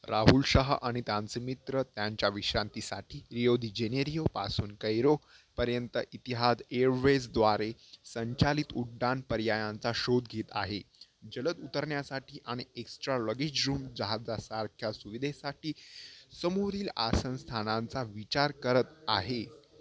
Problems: constant background noise, low volume